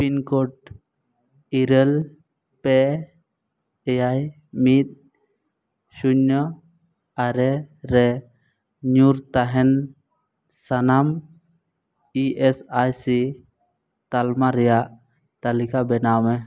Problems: none marked